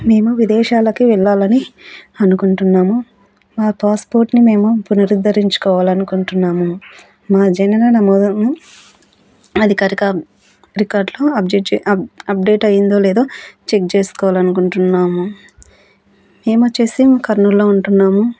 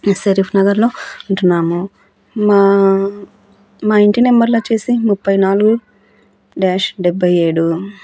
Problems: background sounds at intervals, background conversations at intervals